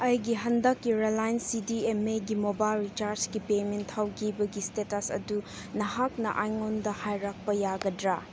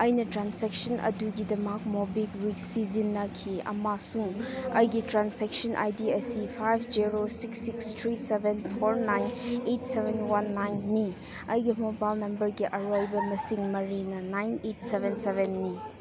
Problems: constant background noise